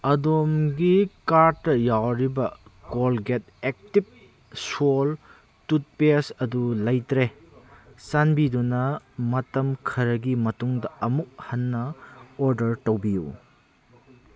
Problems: background conversations at intervals